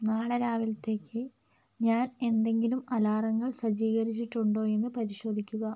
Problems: none marked